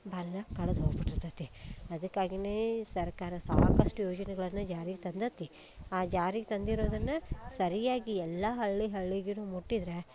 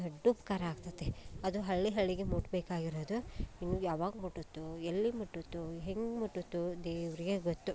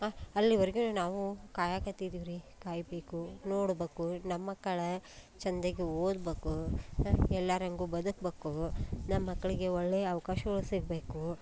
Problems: none marked